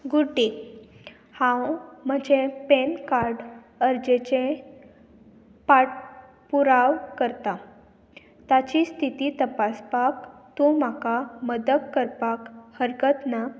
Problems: constant background noise